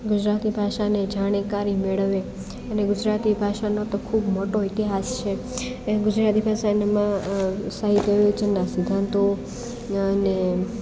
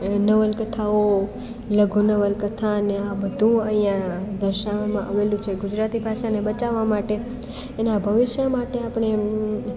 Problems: constant background noise, continuous background conversations